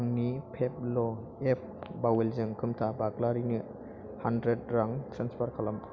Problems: constant background noise